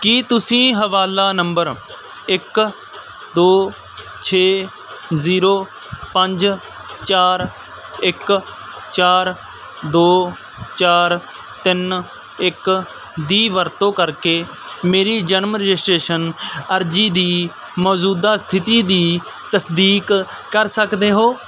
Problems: background sounds at intervals